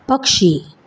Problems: background sounds at intervals